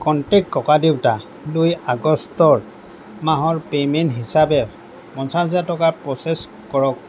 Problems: constant background noise